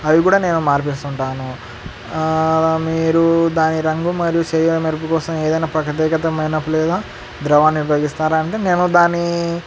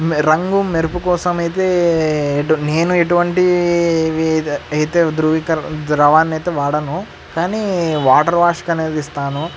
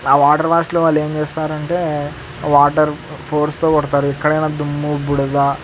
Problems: constant background noise